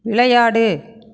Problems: none marked